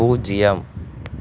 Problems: constant background noise